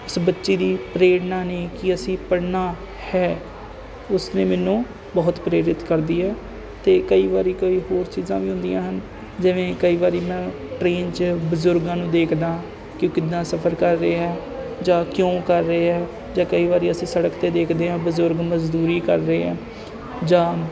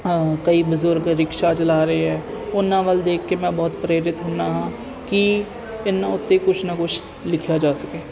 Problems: constant background noise